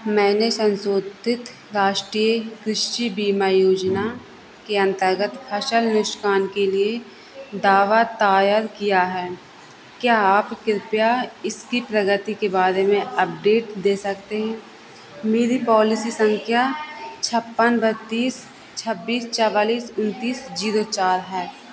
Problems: constant background noise